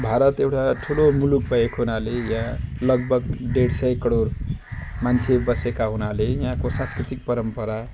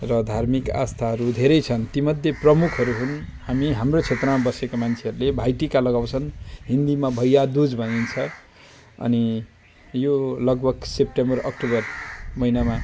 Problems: constant background noise